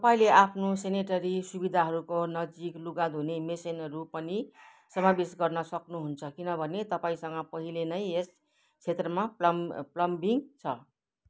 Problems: none marked